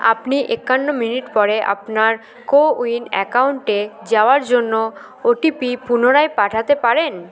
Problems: continuous background conversations